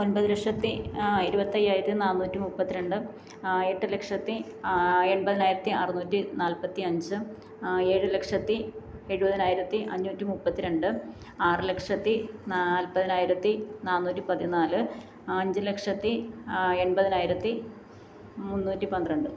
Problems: low volume